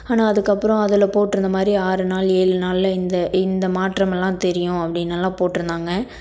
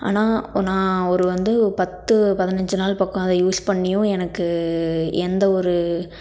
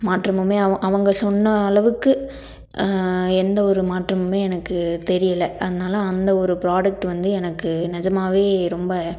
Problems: none marked